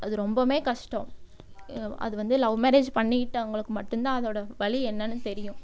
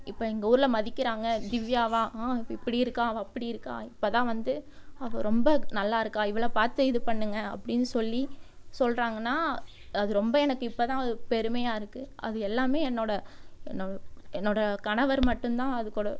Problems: background sounds at intervals